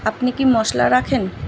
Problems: constant background noise